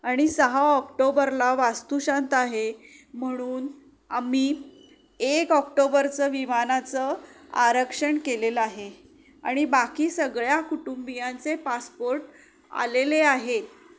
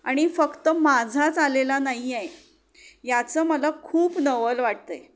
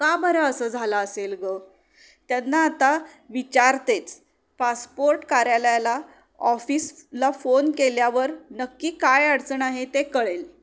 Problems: none marked